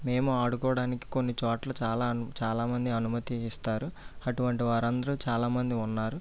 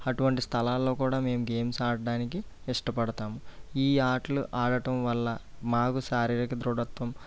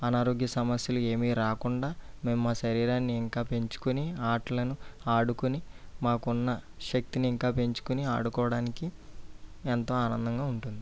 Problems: low volume